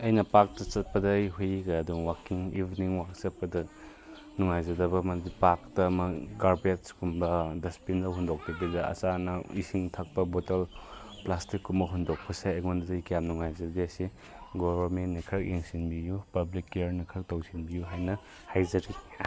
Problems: background conversations at intervals